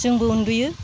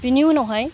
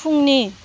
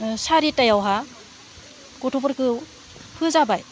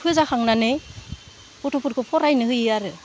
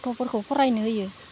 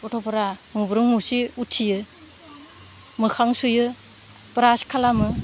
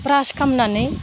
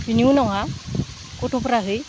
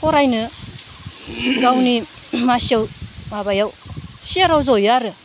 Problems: background conversations at intervals, low volume